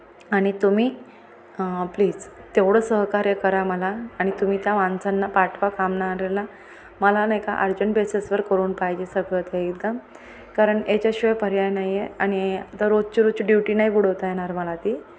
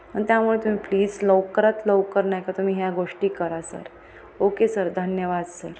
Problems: constant background noise, background conversations at intervals